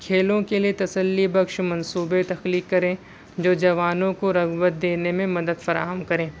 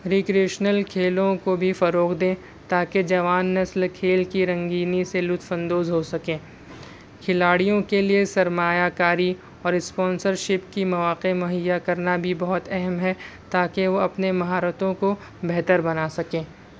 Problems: constant background noise